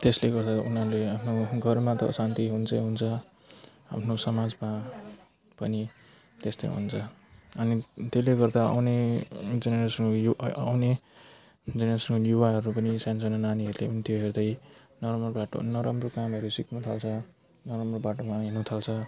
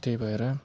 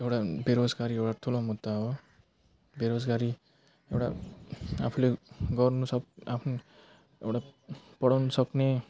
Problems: constant background noise